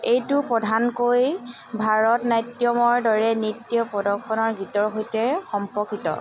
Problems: constant background noise, background conversations at intervals